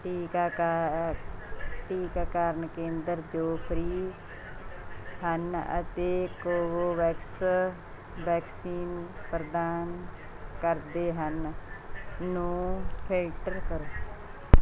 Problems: constant background noise